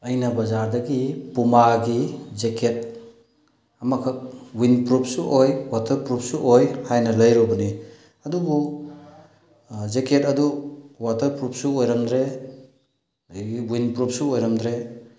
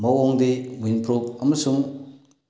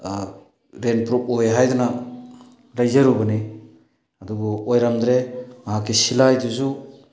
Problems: background sounds at intervals